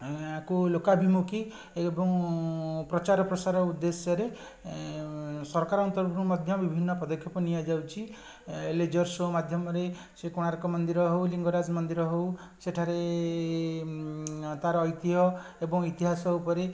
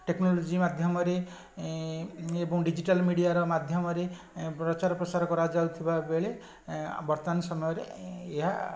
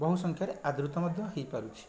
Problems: none marked